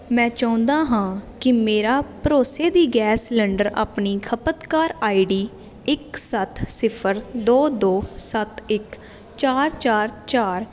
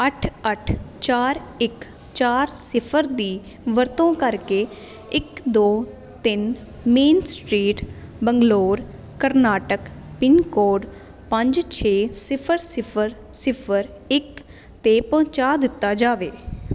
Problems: constant background noise